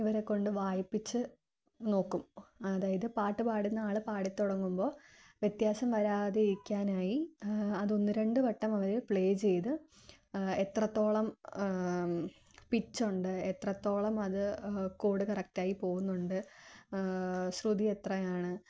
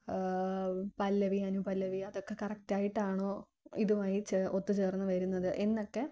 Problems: none marked